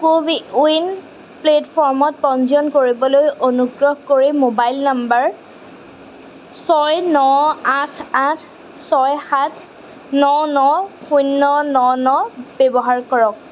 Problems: constant background noise